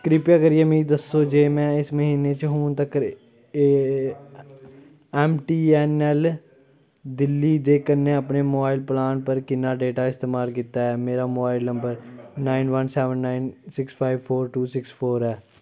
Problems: none marked